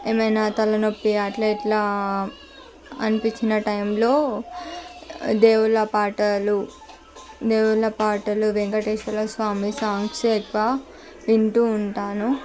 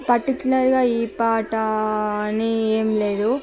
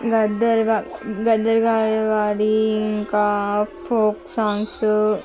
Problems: none marked